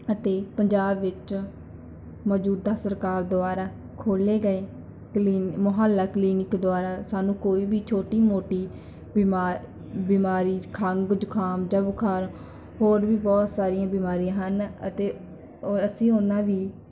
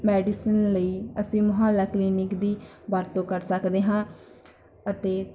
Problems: background conversations at intervals